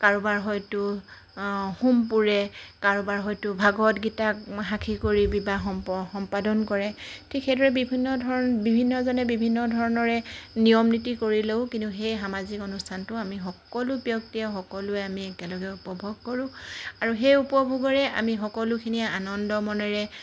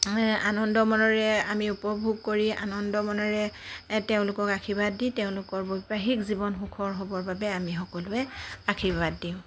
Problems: constant background noise